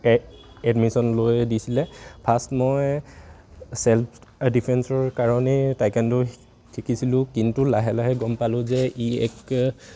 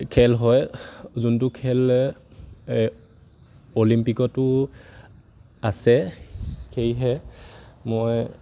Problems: none marked